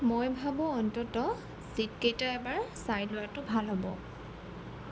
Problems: none marked